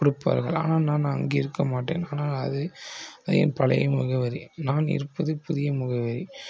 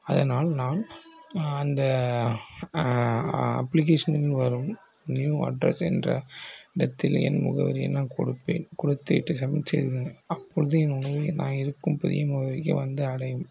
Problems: low volume